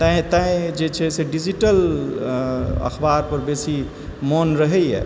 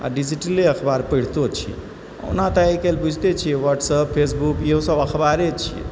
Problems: background sounds at intervals